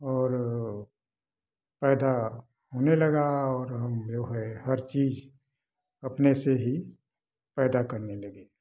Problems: background sounds at intervals